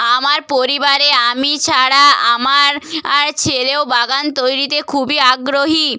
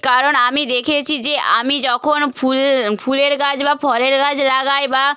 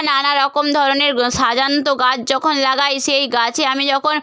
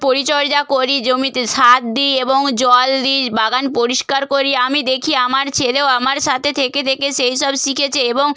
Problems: none marked